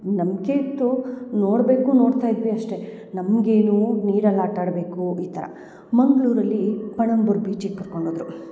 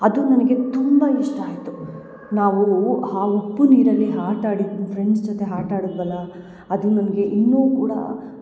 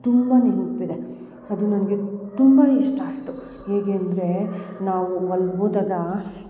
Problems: none marked